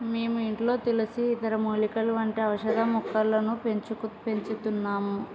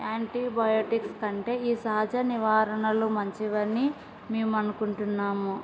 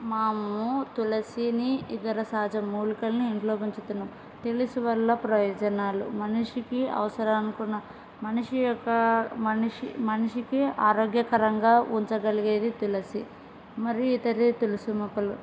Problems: background sounds at intervals